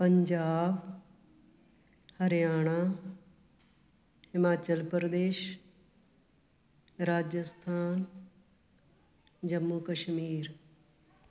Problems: background sounds at intervals